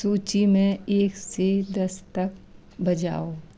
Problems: constant background noise